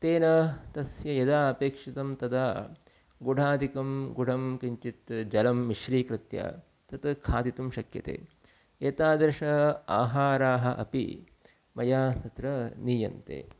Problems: none marked